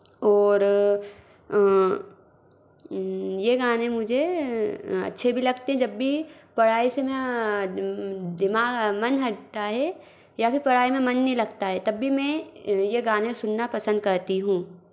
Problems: background sounds at intervals